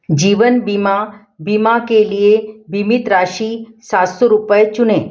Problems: background sounds at intervals